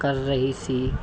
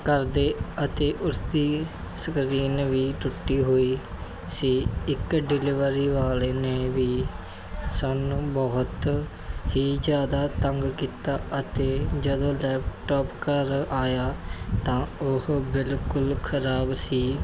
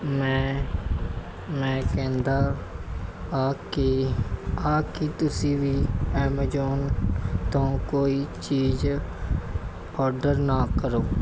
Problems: constant background noise